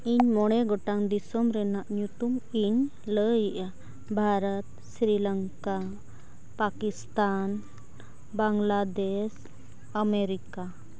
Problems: none marked